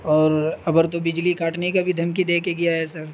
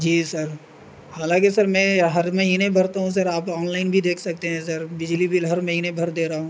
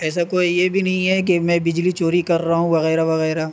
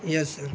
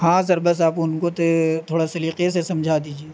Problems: constant background noise